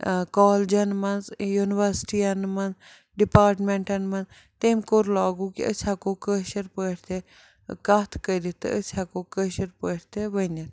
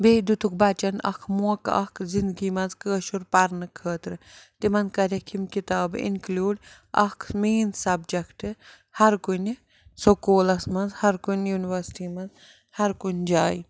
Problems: background sounds at intervals